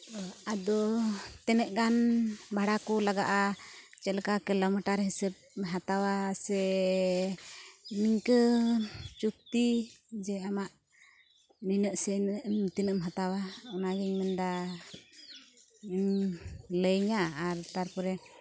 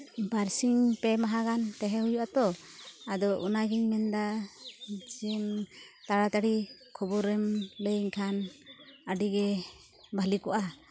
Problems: constant background noise